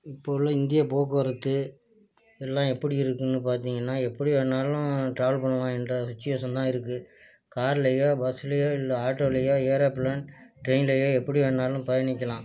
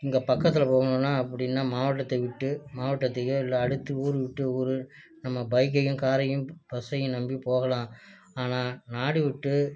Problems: low volume